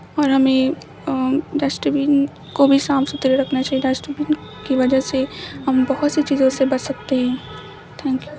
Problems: constant background noise, background conversations at intervals